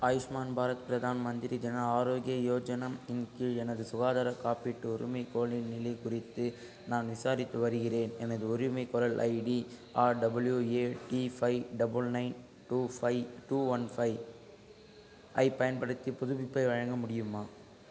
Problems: constant background noise, low volume